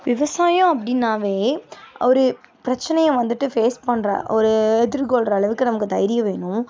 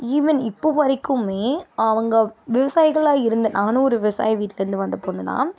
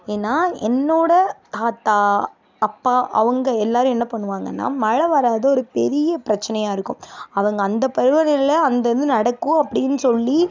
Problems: background sounds at intervals